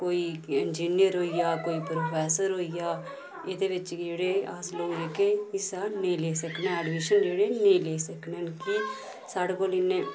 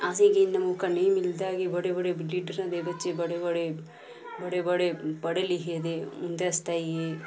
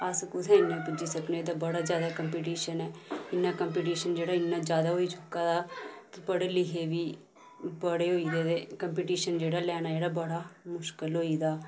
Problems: none marked